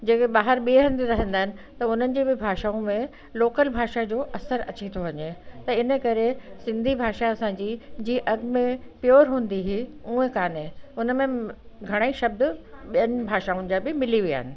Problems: constant background noise